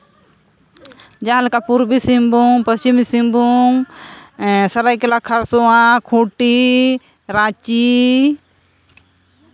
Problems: none marked